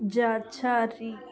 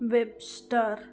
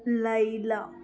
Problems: none marked